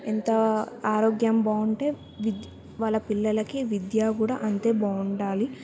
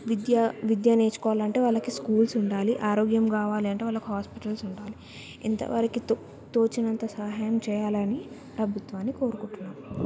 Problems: background sounds at intervals